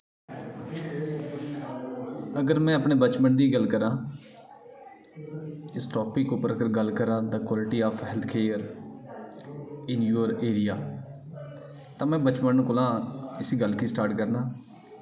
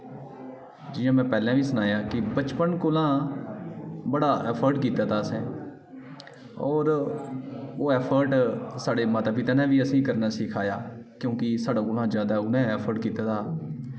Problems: echo